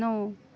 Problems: none marked